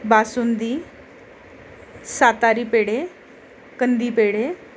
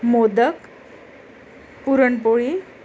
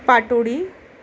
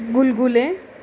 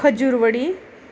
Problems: constant background noise, continuous background conversations